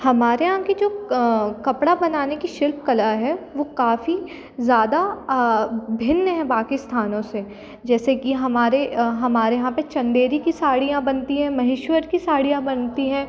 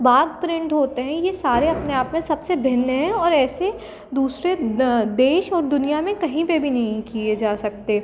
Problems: constant background noise